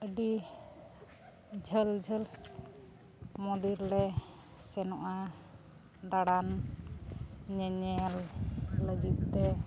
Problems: constant background noise